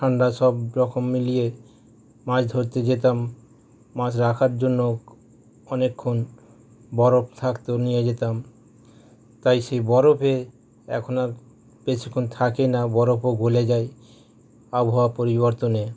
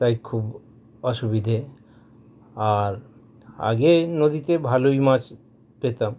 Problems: none marked